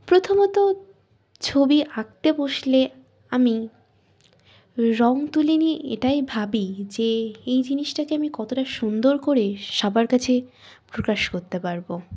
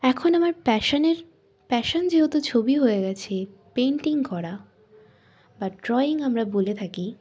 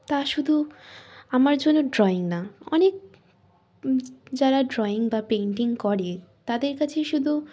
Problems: none marked